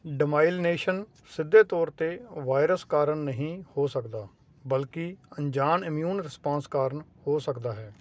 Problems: constant background noise